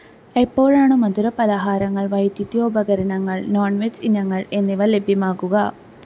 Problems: none marked